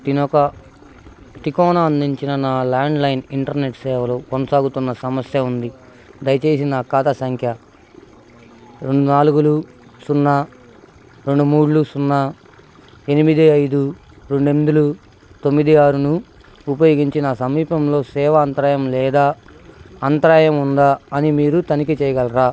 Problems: constant background noise